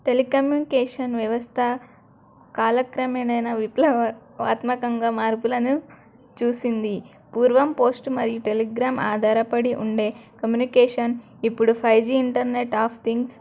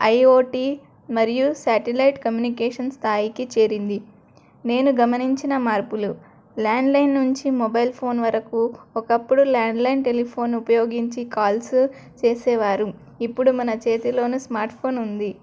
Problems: none marked